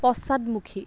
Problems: none marked